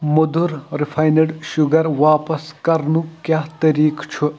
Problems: none marked